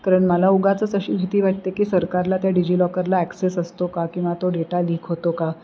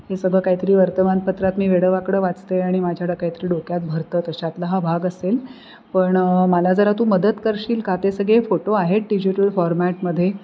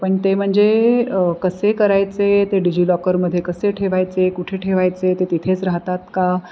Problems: constant background noise